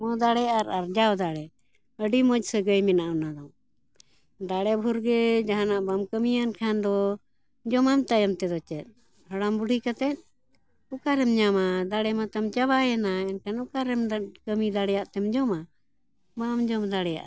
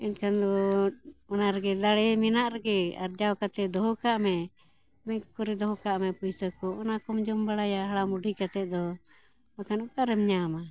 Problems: background conversations at intervals